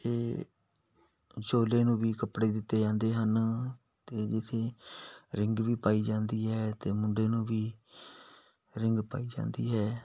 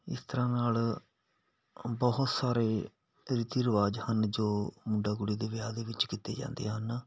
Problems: background sounds at intervals